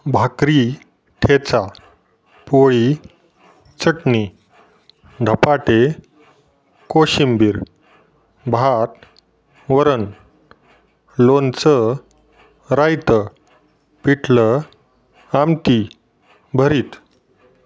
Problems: none marked